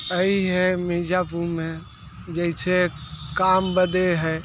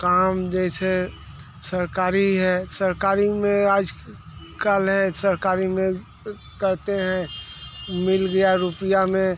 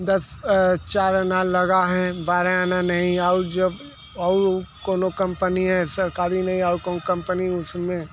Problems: constant background noise